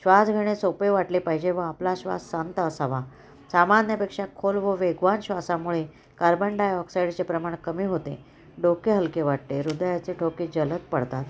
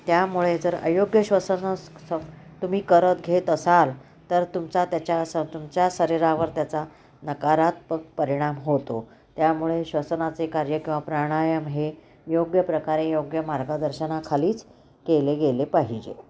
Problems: background sounds at intervals